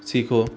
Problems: none marked